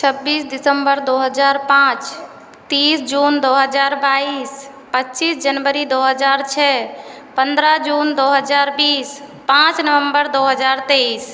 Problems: constant background noise